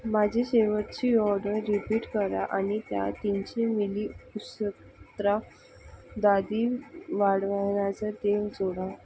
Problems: none marked